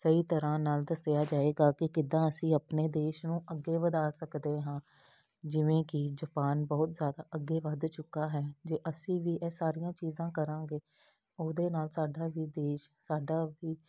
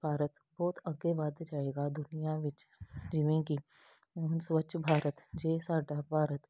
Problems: none marked